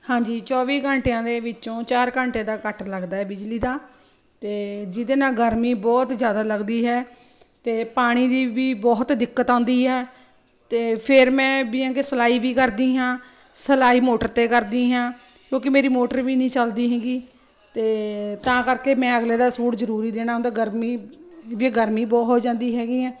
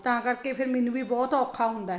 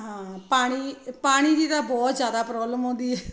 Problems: constant background noise